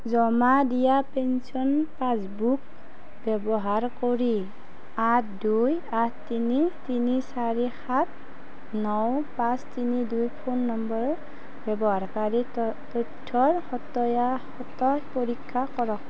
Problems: constant background noise